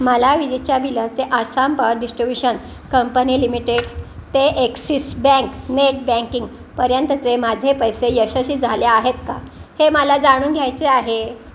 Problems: none marked